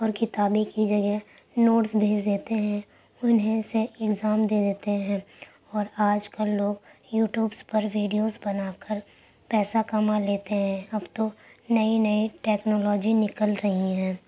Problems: constant background noise